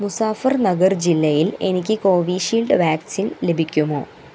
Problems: constant background noise